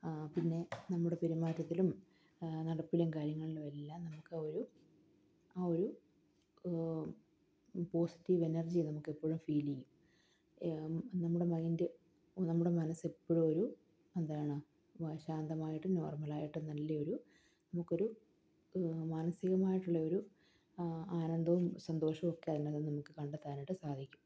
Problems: none marked